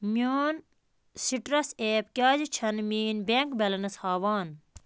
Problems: none marked